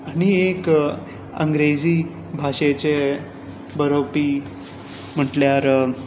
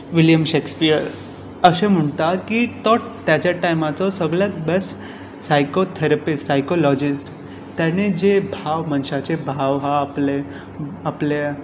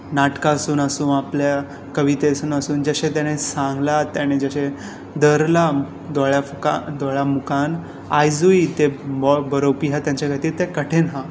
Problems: none marked